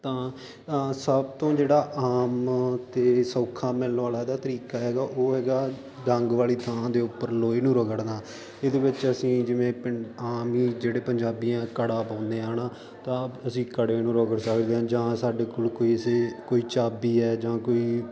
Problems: constant background noise